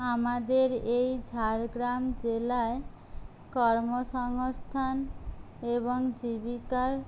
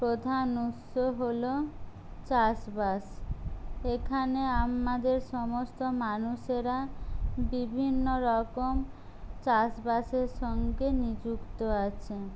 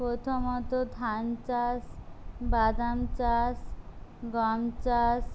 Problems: low volume